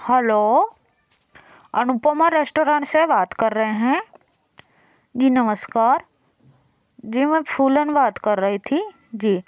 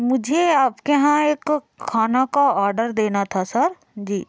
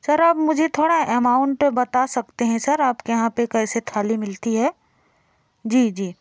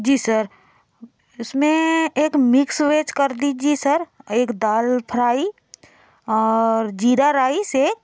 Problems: constant background noise